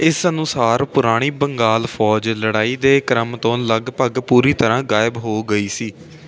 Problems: none marked